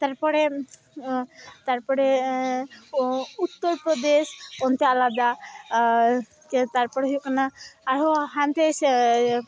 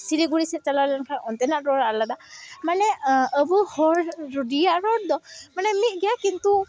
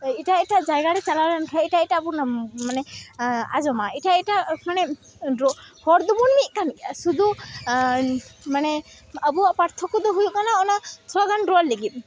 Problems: constant background noise, continuous background conversations